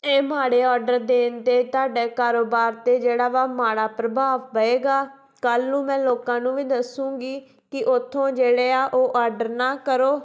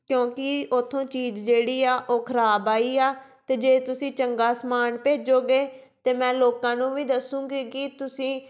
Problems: background sounds at intervals